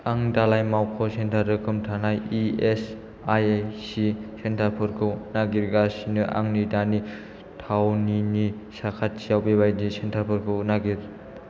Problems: low volume